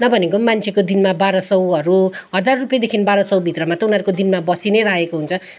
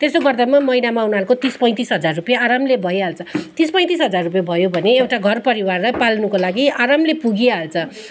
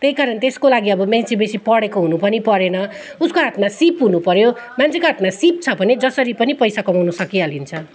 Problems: background sounds at intervals